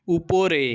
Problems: constant background noise